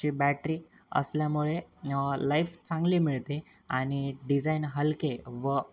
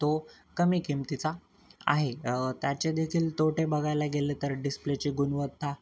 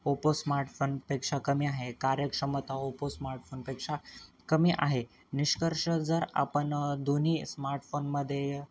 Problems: constant background noise